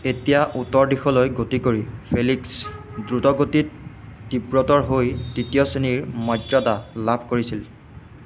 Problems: constant background noise